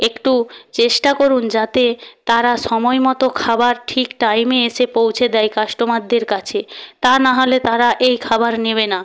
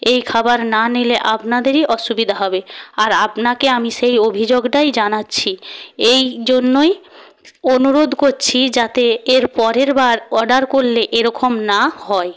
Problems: background sounds at intervals